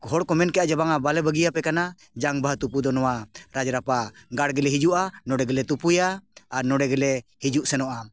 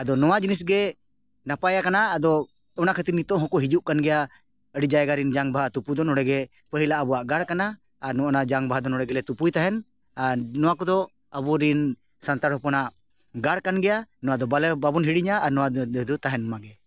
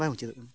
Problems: background conversations at intervals